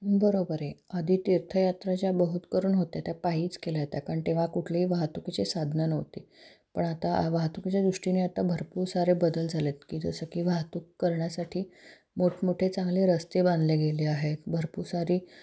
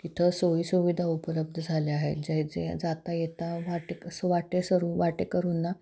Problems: none marked